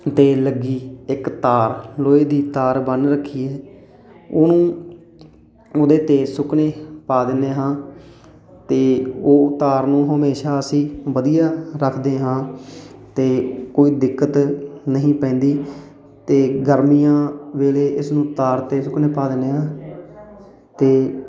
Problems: continuous background conversations